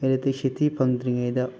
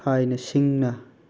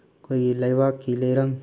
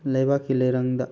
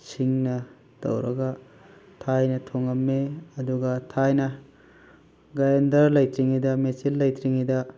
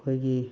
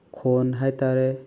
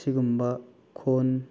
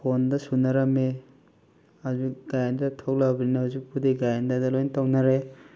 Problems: none marked